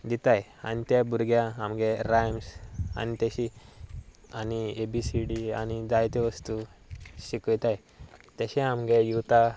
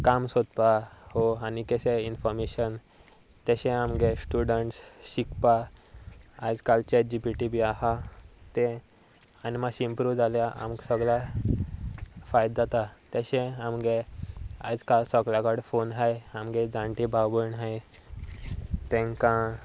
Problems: none marked